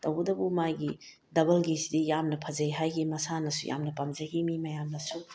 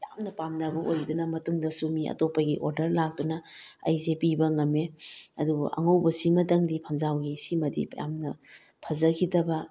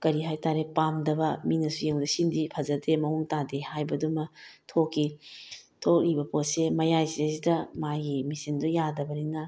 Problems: none marked